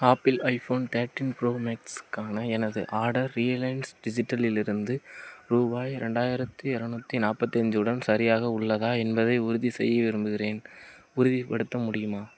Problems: none marked